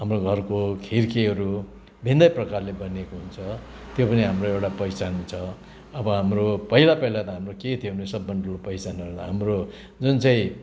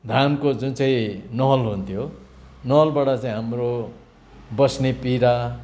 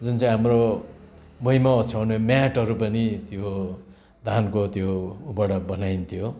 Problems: constant background noise